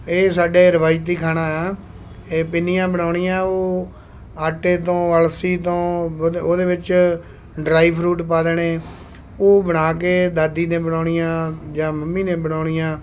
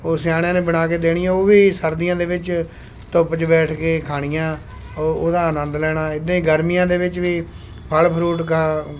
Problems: constant background noise